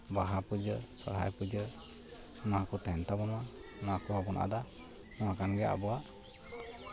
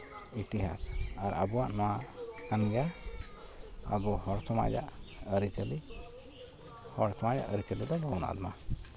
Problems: constant background noise, continuous background conversations